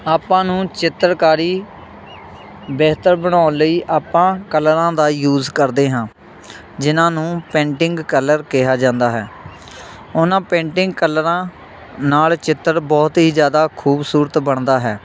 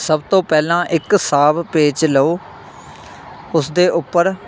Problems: none marked